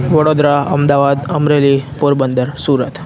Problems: constant background noise